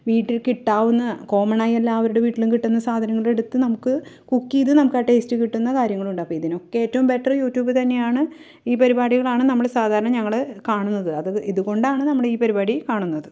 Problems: none marked